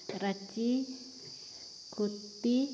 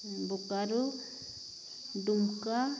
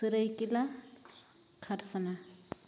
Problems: none marked